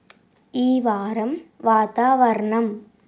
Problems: constant background noise